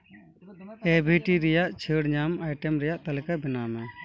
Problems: background sounds at intervals, continuous background conversations